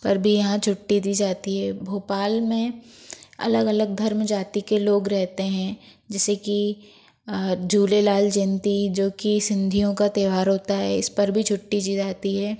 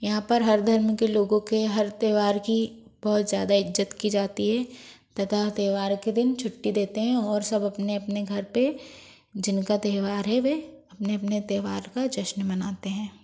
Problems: background sounds at intervals